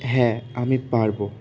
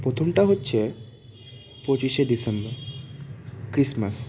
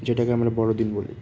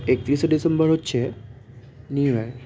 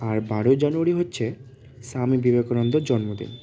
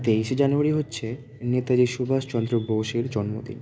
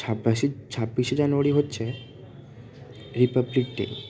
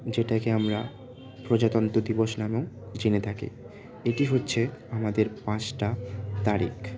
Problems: constant background noise, continuous background conversations